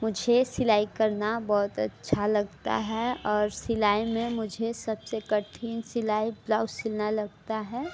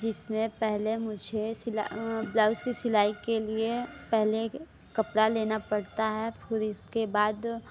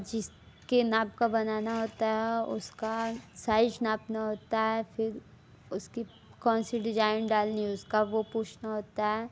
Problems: none marked